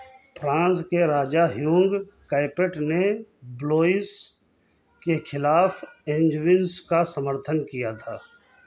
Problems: background sounds at intervals, background conversations at intervals